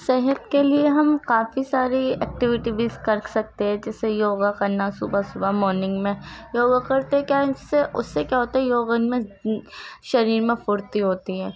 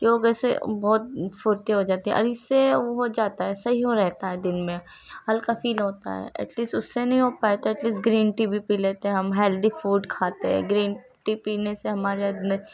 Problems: constant background noise, low volume